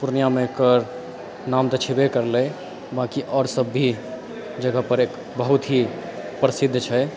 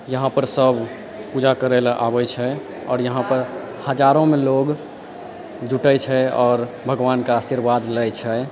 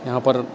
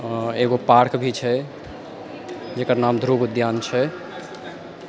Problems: background sounds at intervals, background conversations at intervals